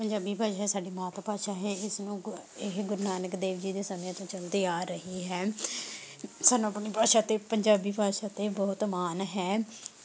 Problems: none marked